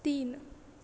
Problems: none marked